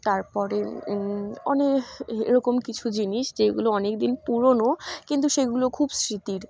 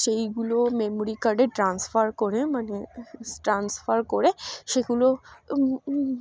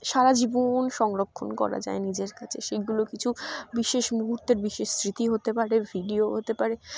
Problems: none marked